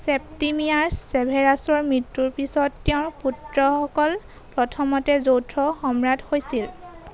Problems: none marked